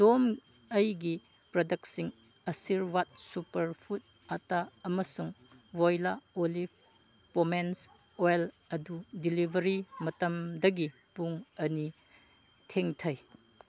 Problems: none marked